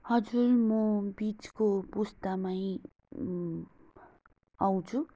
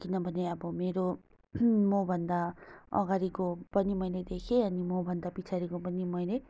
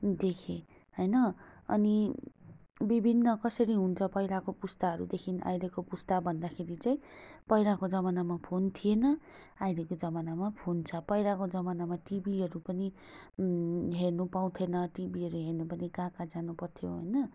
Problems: constant background noise